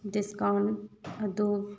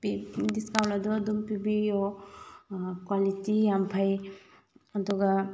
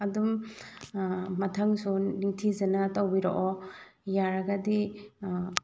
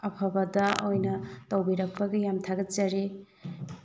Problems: background sounds at intervals, low volume